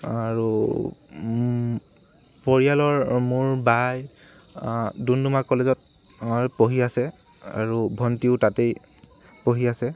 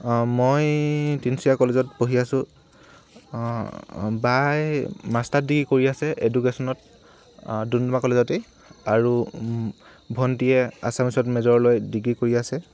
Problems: constant background noise